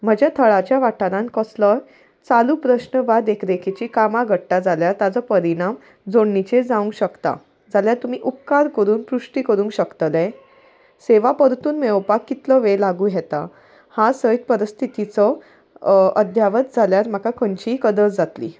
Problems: none marked